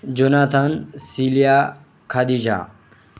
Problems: none marked